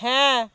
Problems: constant background noise